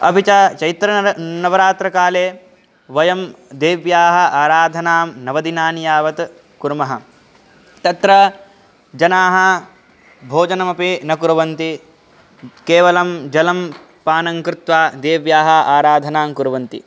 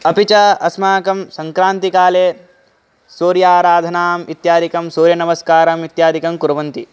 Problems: none marked